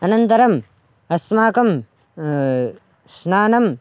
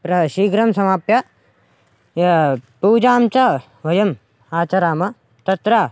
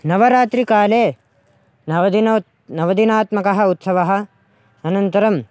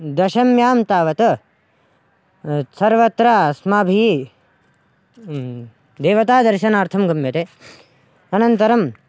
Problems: none marked